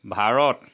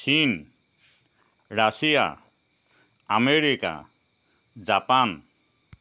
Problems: constant background noise